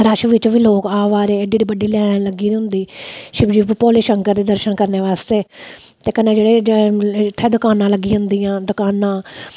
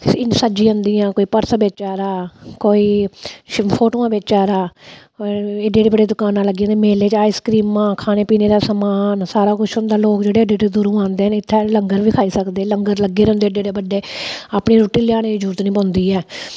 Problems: none marked